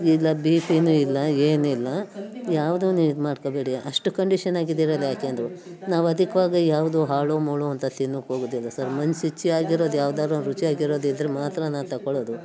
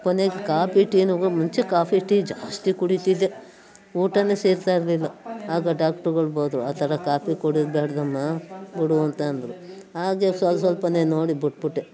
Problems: background sounds at intervals